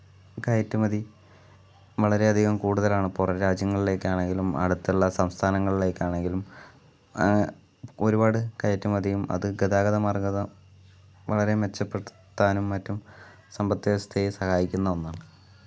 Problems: none marked